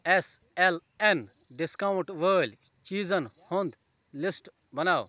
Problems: background conversations at intervals